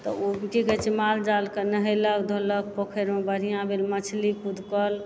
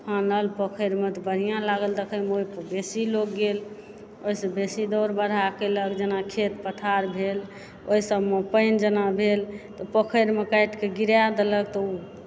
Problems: background sounds at intervals